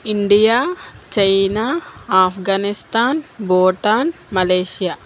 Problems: constant background noise